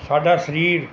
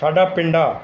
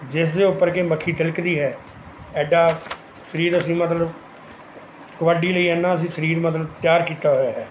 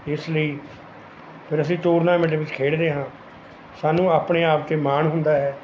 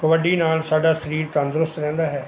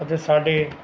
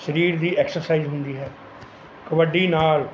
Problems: background sounds at intervals